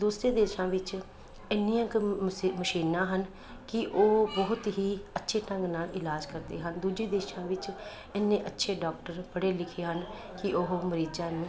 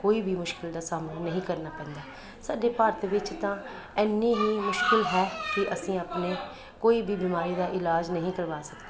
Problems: constant background noise